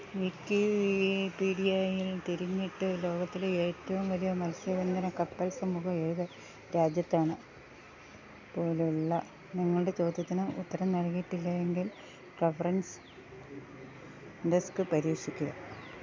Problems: none marked